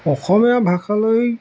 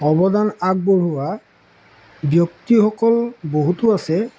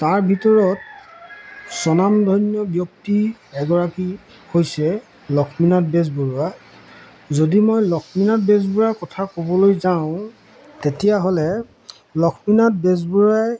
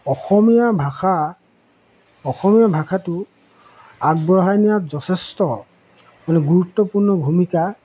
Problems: background sounds at intervals